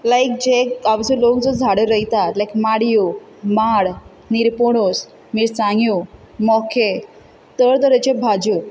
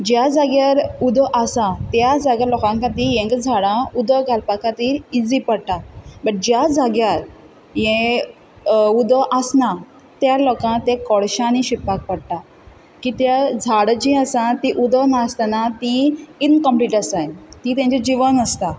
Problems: none marked